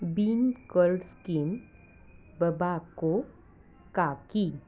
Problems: background sounds at intervals